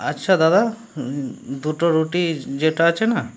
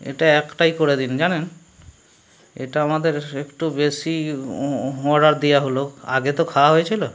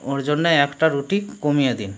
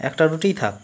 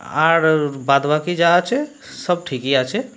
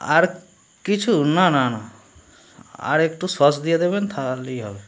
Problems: background sounds at intervals, background conversations at intervals